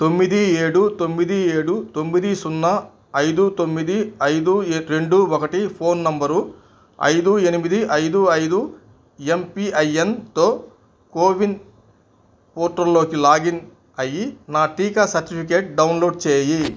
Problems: none marked